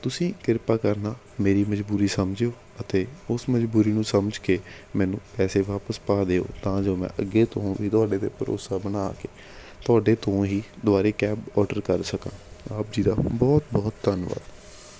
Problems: background sounds at intervals